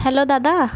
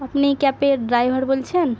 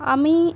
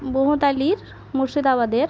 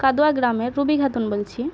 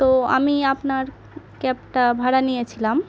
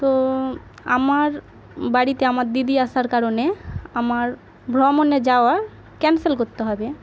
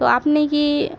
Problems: constant background noise